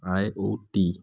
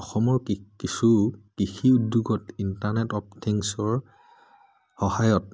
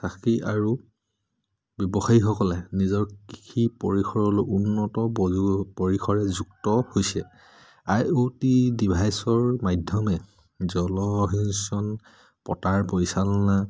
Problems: none marked